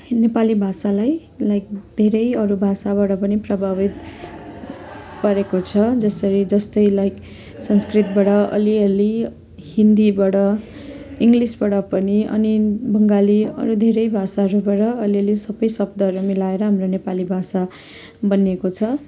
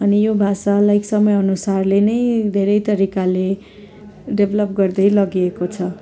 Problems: continuous background conversations